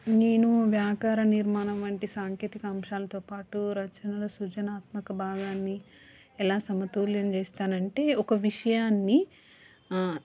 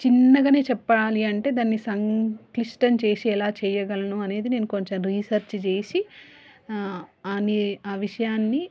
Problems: background sounds at intervals